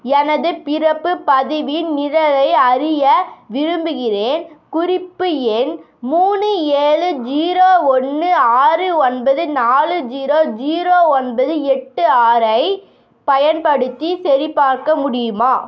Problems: constant background noise